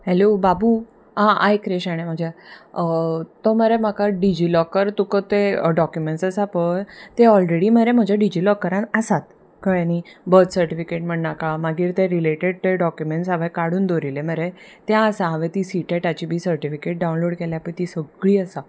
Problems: none marked